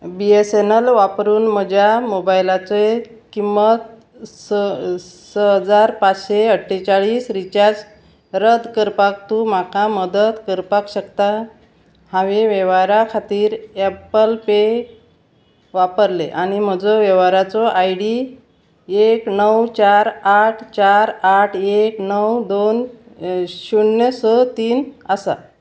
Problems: constant background noise